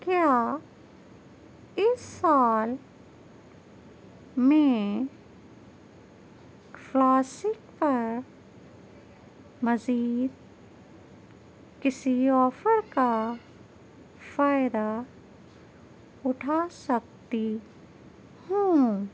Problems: none marked